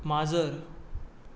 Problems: background sounds at intervals